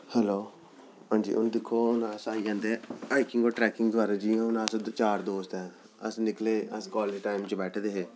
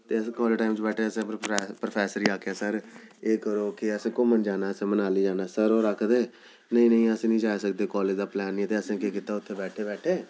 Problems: none marked